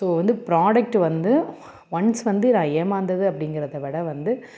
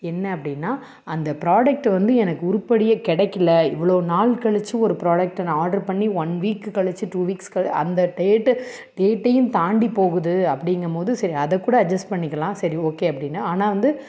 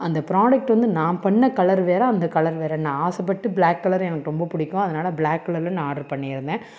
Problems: none marked